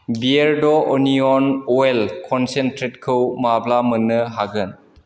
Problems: constant background noise